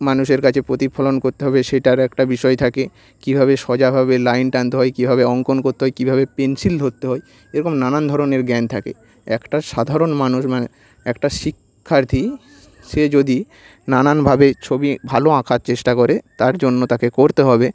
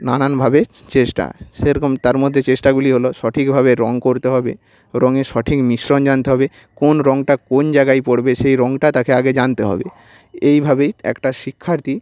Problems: background sounds at intervals